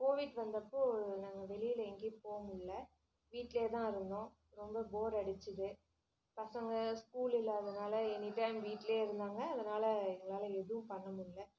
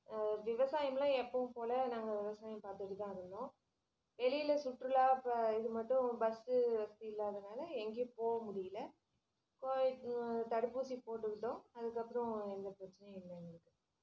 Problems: low volume